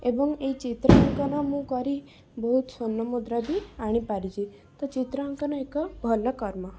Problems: background sounds at intervals